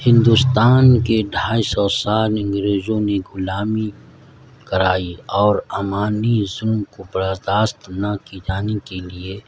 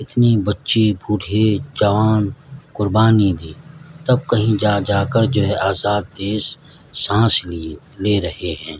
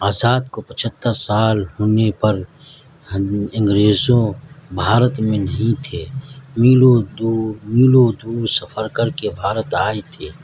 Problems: constant background noise